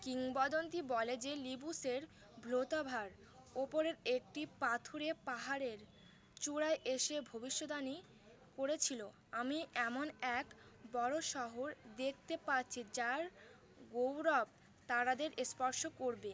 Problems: none marked